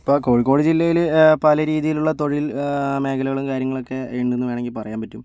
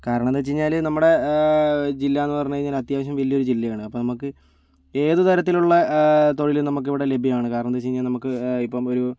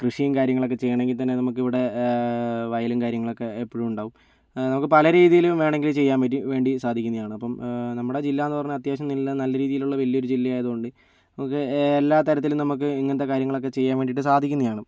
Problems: none marked